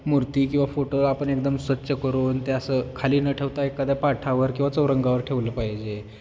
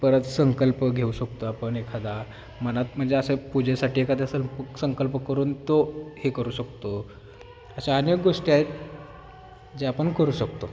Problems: none marked